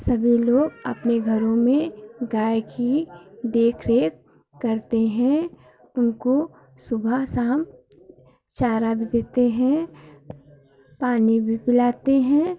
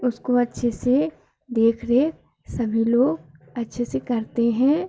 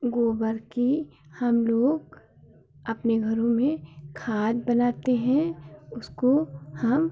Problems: none marked